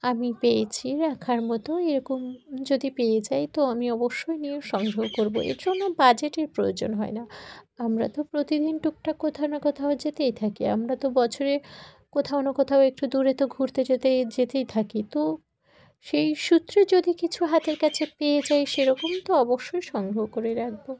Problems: background sounds at intervals